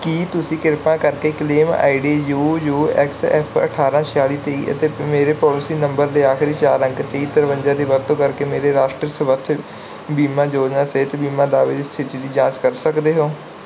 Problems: background sounds at intervals